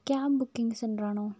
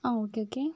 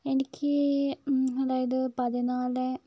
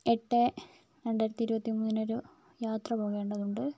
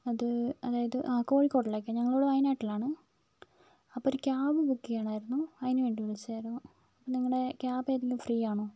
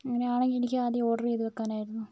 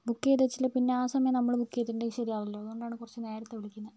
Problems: low volume